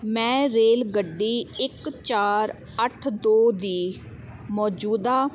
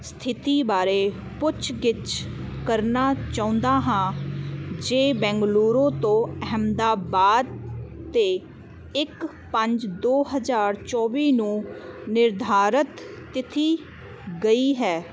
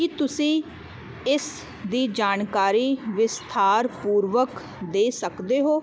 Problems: constant background noise